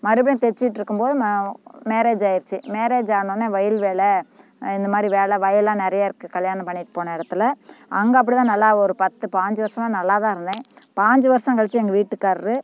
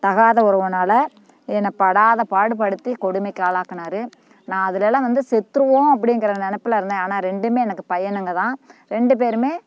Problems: constant background noise